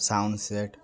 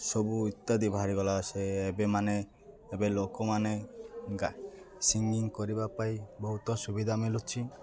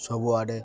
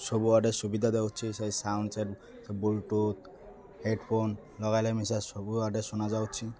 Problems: constant background noise, continuous background conversations